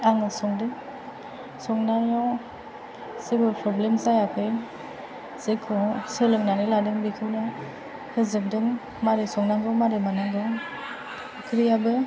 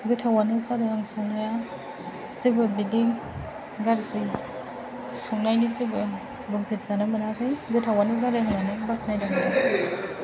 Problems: constant background noise, background conversations at intervals